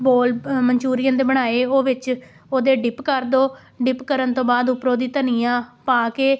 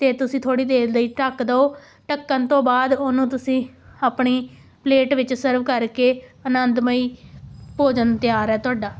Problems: background sounds at intervals